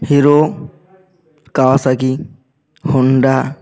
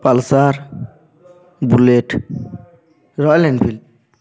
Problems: none marked